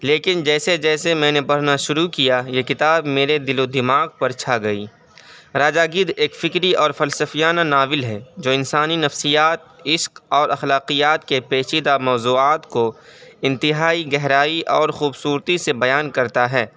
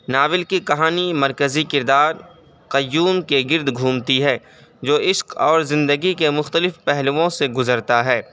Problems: background sounds at intervals, background conversations at intervals